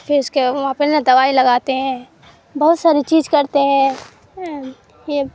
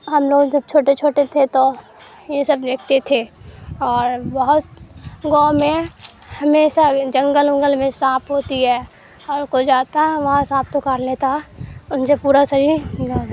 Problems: background sounds at intervals, background conversations at intervals